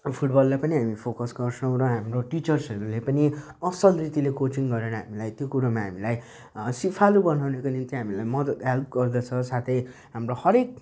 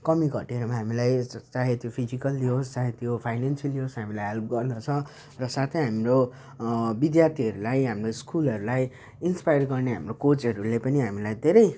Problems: none marked